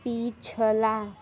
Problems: constant background noise, background conversations at intervals